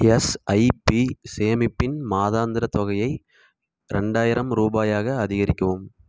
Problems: none marked